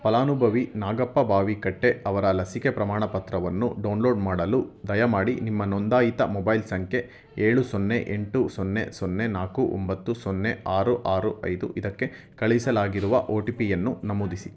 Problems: background conversations at intervals